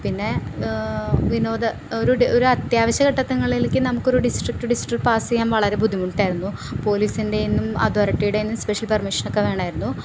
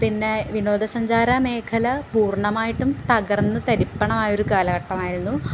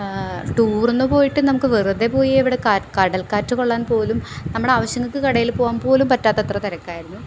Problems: constant background noise